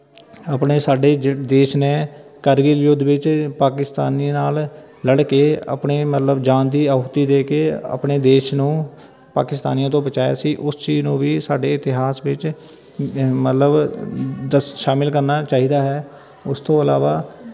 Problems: constant background noise, continuous background conversations